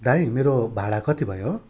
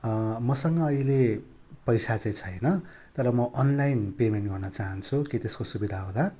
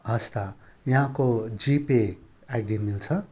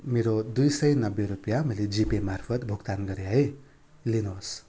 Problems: constant background noise